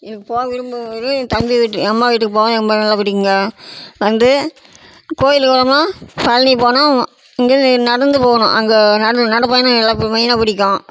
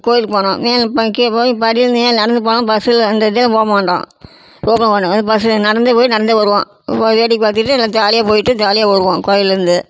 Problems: constant background noise